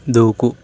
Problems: constant background noise